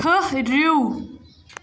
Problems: none marked